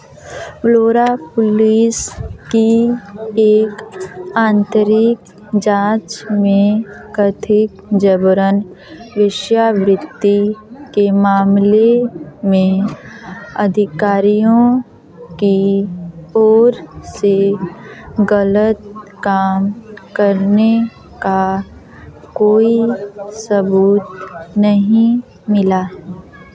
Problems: background conversations at intervals